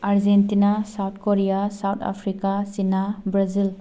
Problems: none marked